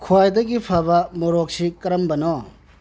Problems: low volume